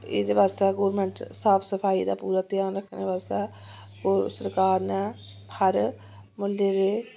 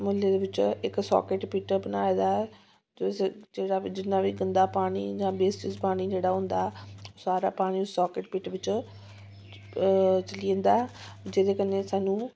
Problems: background sounds at intervals